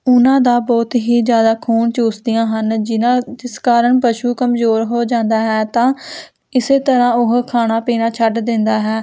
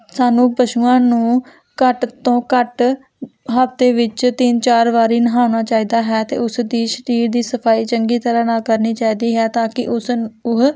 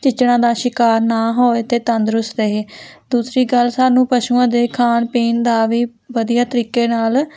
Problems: none marked